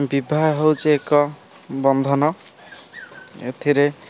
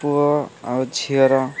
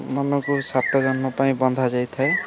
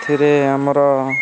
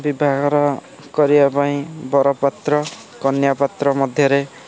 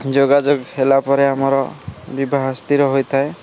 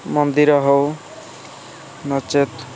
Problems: constant background noise, continuous background conversations